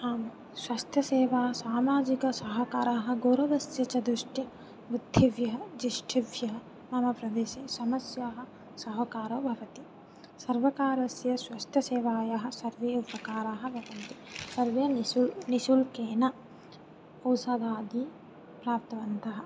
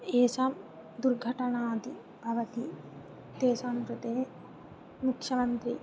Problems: low volume